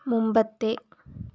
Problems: low volume